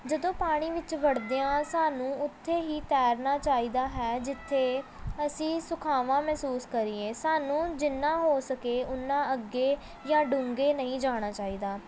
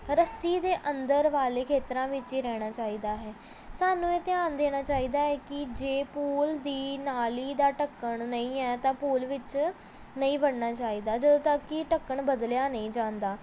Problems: background sounds at intervals, background conversations at intervals